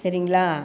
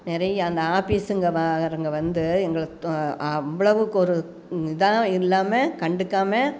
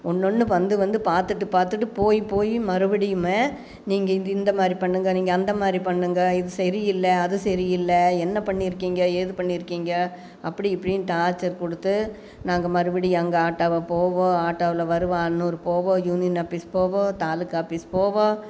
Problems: none marked